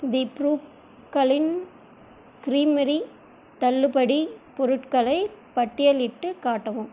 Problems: constant background noise